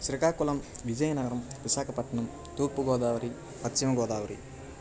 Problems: constant background noise